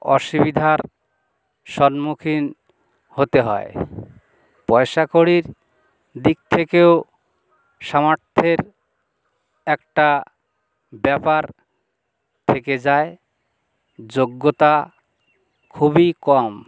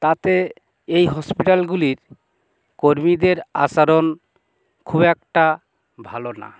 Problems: none marked